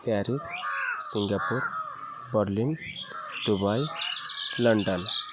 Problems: constant background noise, continuous background conversations